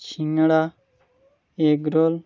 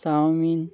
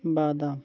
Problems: none marked